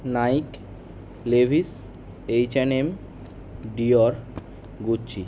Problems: constant background noise